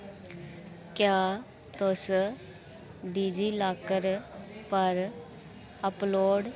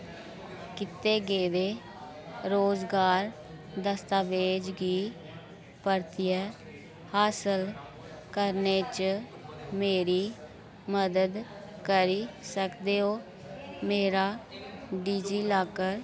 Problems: constant background noise